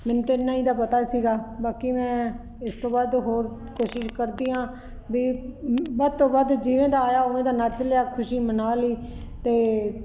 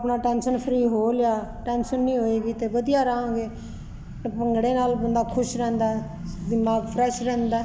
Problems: constant background noise